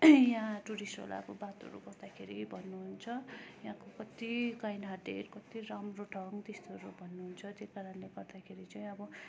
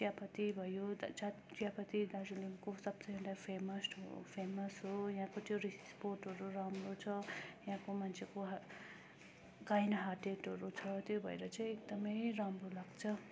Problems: constant background noise, continuous background conversations